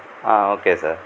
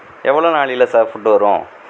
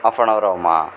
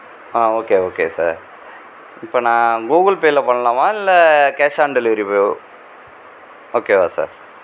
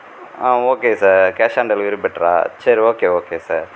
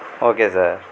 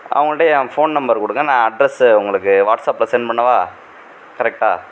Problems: none marked